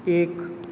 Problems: constant background noise